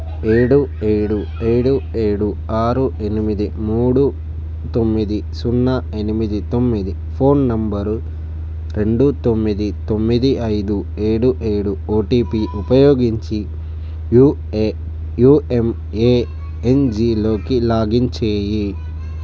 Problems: none marked